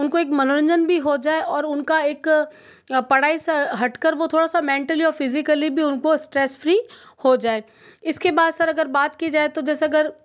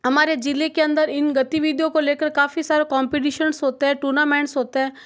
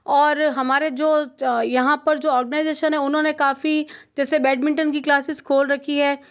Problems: background sounds at intervals